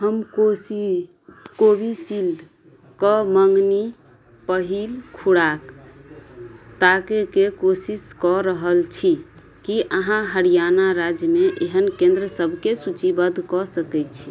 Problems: none marked